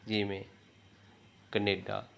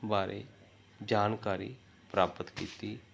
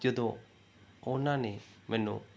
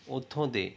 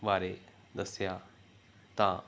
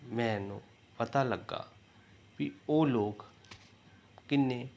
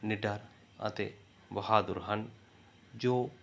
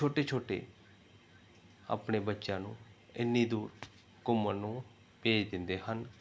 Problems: none marked